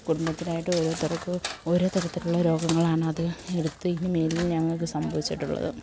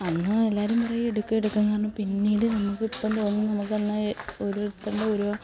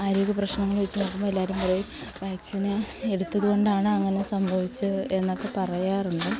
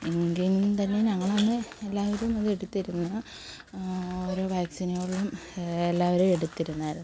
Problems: constant background noise, low volume